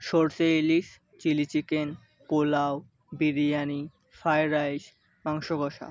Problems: background sounds at intervals